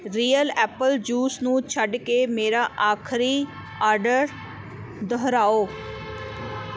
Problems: constant background noise